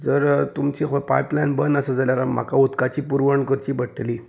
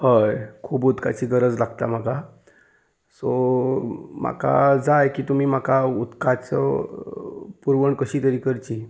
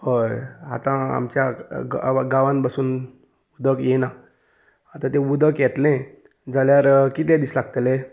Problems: constant background noise